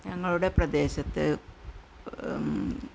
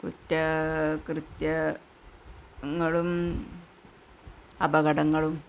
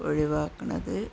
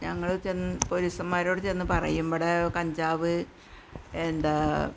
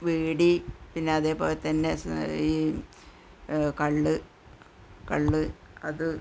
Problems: constant background noise, low volume